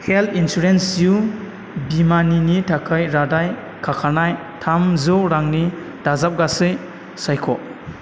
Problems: constant background noise